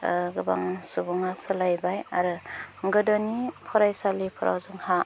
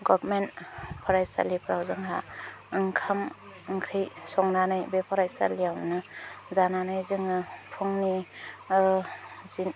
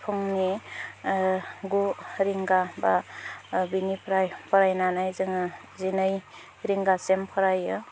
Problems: low volume